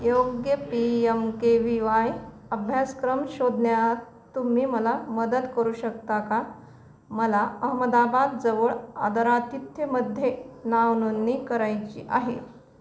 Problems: background sounds at intervals